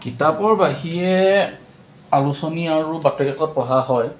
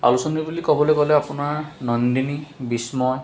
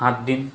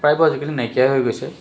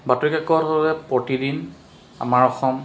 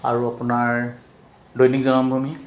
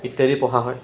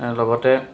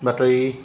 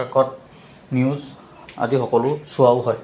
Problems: constant background noise